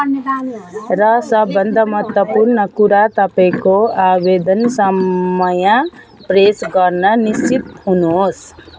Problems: constant background noise, continuous background conversations